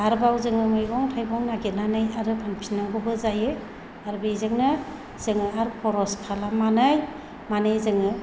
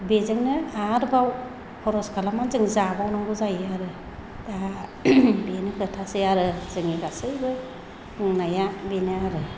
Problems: low volume